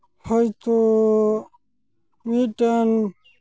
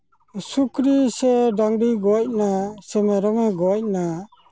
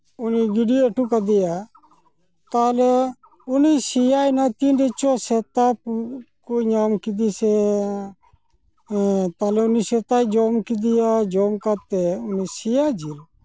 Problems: background sounds at intervals